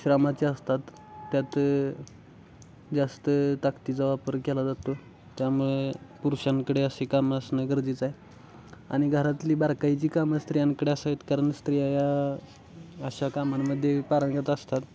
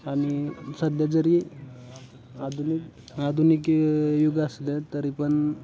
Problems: constant background noise, background conversations at intervals